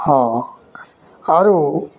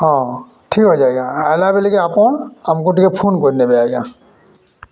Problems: constant background noise, continuous background conversations